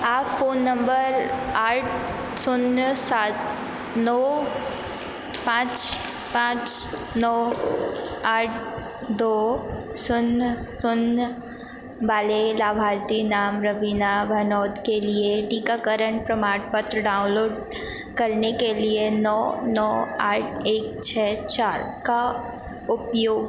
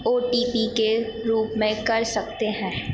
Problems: none marked